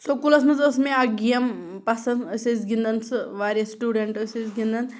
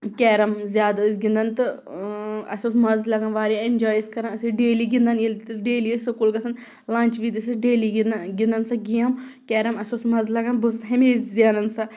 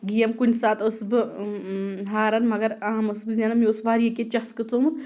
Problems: background sounds at intervals